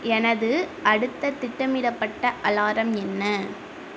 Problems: constant background noise